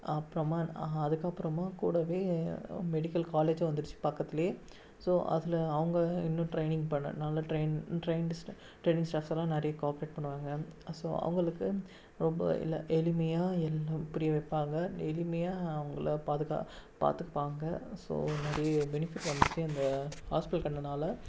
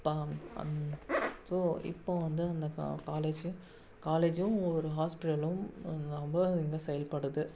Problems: background sounds at intervals, low volume